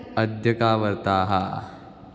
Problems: constant background noise, background conversations at intervals